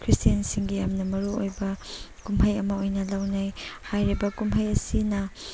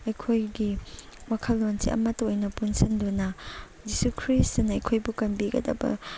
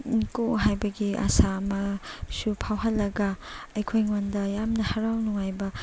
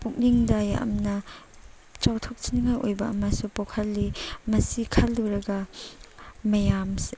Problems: background sounds at intervals, background conversations at intervals